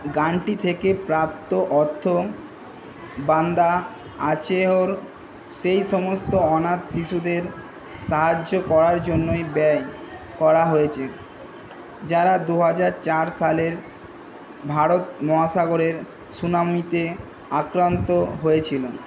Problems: none marked